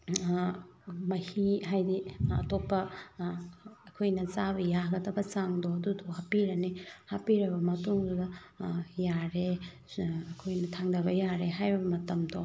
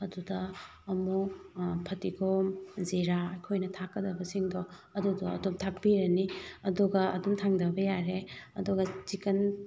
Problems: none marked